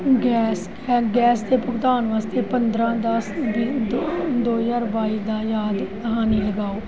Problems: none marked